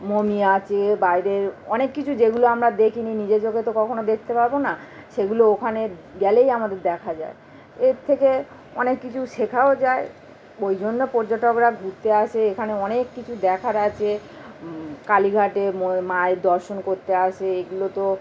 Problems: constant background noise